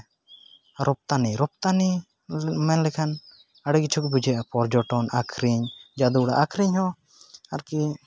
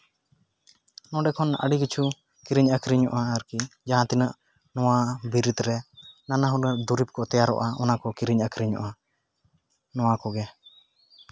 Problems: none marked